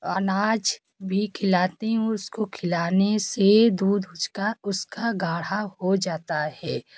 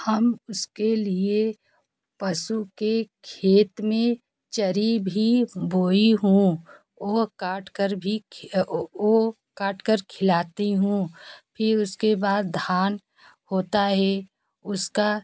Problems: background sounds at intervals, continuous background conversations